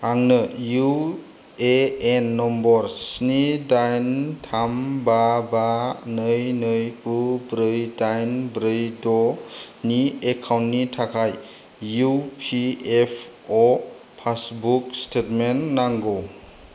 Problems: low volume